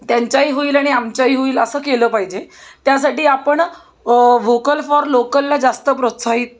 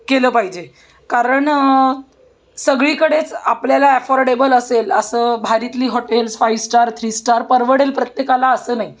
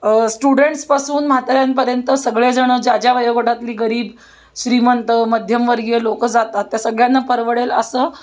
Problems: none marked